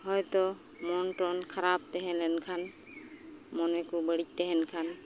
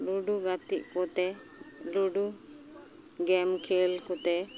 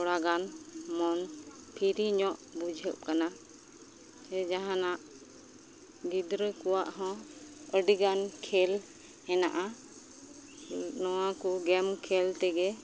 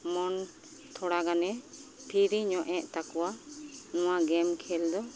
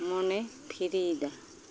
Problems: constant background noise, background conversations at intervals